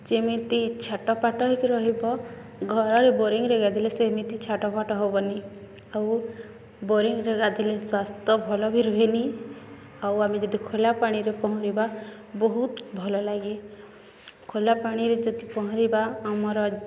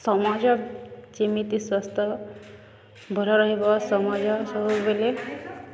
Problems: none marked